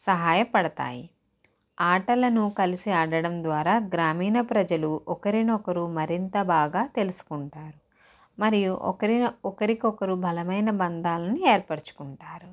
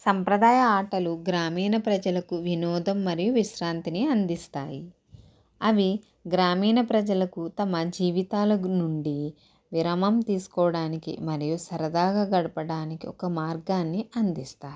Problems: none marked